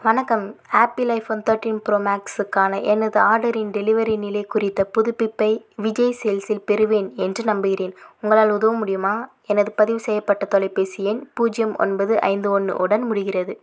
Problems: none marked